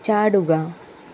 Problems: constant background noise